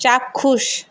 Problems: none marked